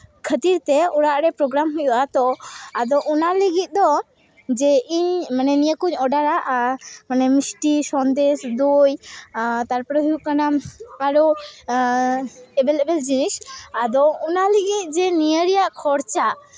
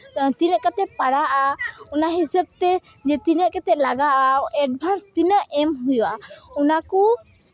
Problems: constant background noise